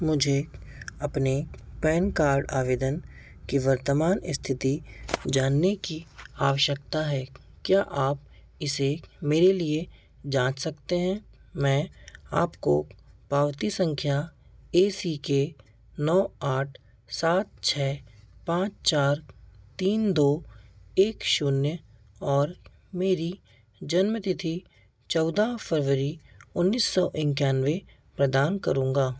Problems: background sounds at intervals